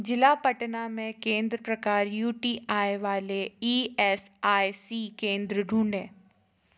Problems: constant background noise